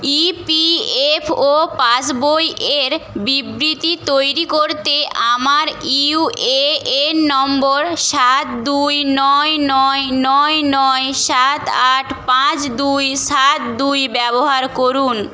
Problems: constant background noise